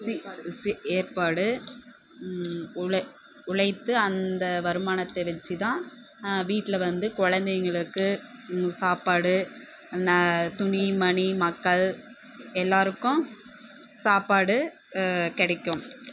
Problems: constant background noise, background conversations at intervals